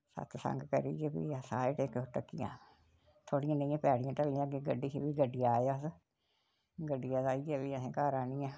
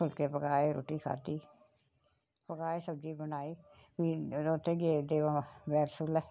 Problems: none marked